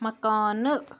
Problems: none marked